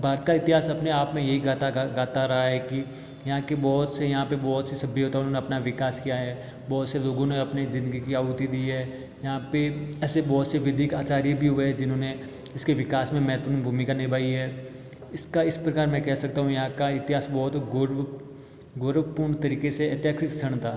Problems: background sounds at intervals